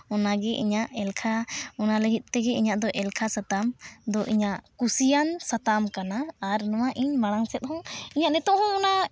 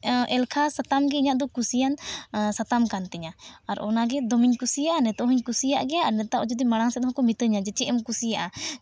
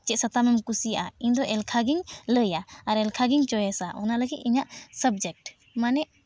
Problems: none marked